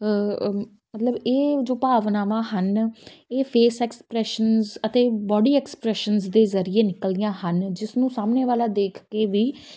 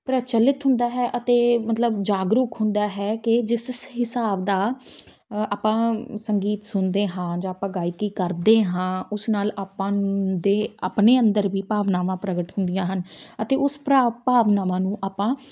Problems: background sounds at intervals